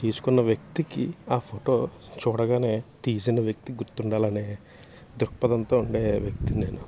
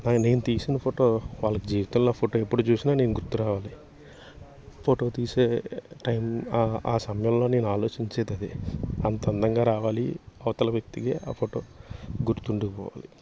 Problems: constant background noise